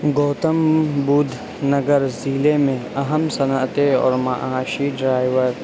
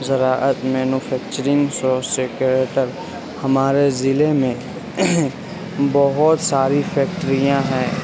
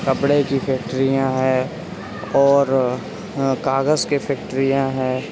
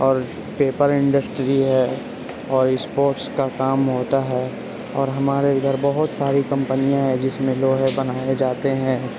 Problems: constant background noise, low volume